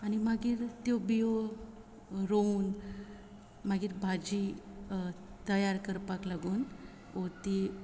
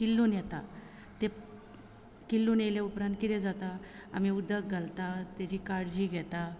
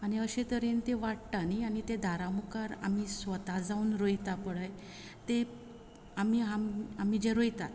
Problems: constant background noise